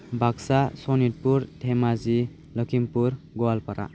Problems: none marked